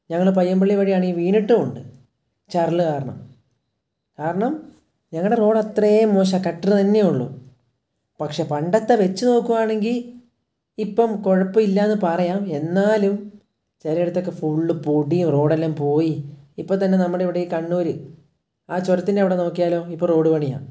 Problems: none marked